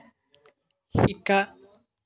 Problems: background sounds at intervals